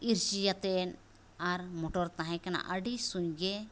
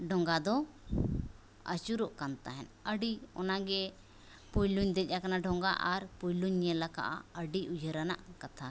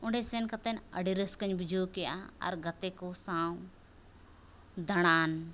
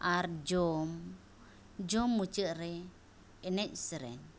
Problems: none marked